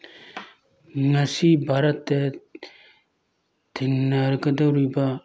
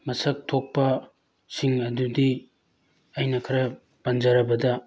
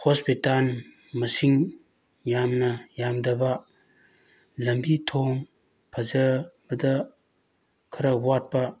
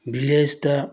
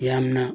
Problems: constant background noise